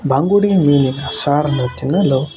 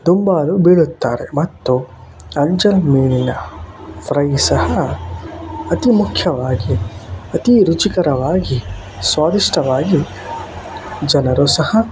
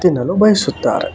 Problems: constant background noise